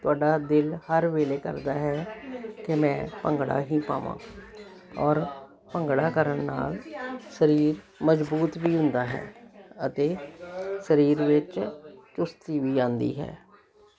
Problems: continuous background conversations